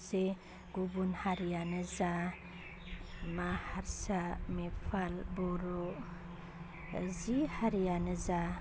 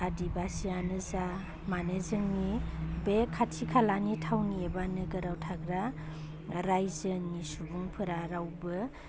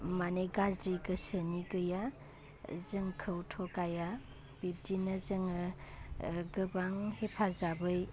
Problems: constant background noise